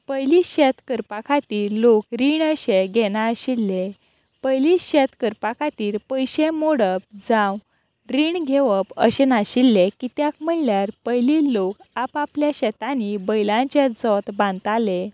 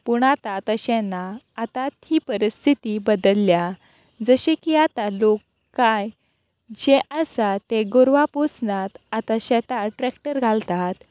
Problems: none marked